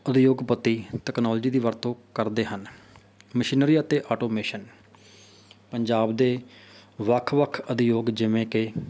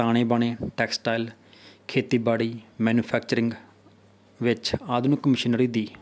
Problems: none marked